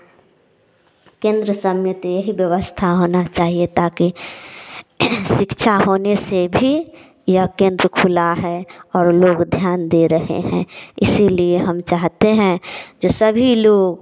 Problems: background sounds at intervals